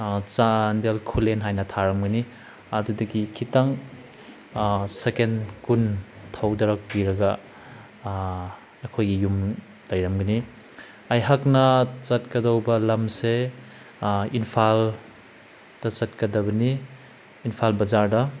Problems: none marked